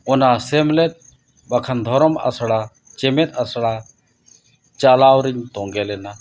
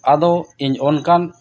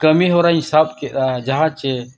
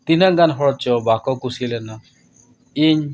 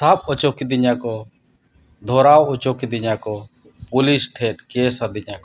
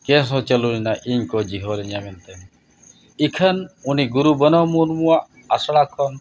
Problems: constant background noise